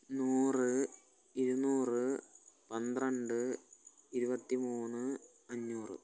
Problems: constant background noise, low volume